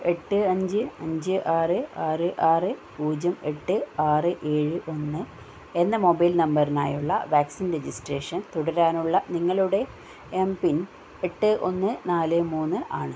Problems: none marked